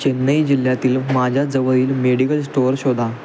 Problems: constant background noise